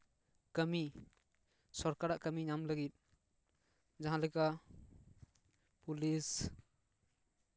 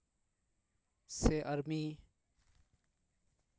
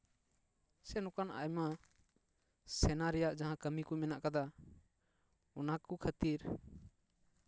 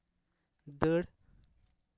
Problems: none marked